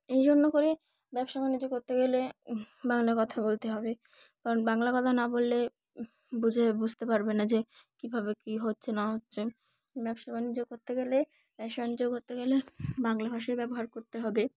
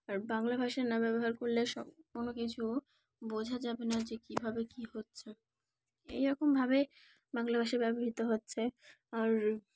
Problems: background sounds at intervals